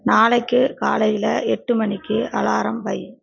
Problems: background conversations at intervals